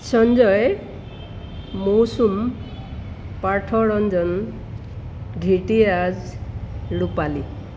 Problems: constant background noise